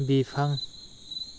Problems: constant background noise